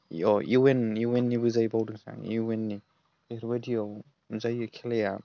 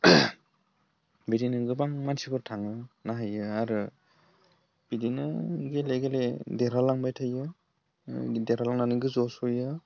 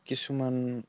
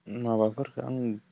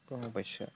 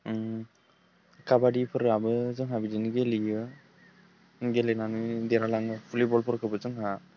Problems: low volume